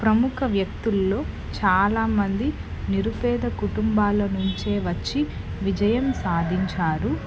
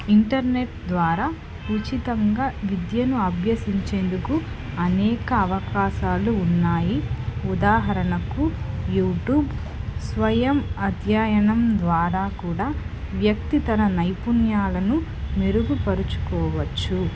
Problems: constant background noise, background conversations at intervals